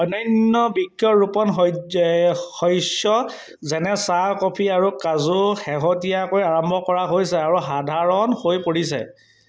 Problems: background sounds at intervals